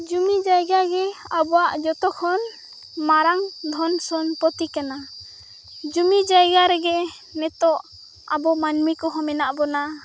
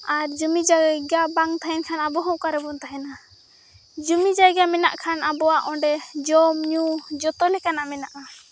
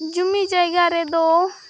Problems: none marked